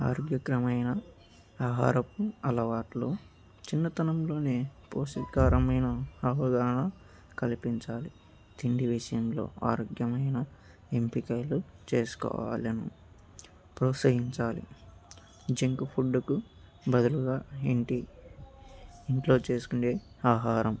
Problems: none marked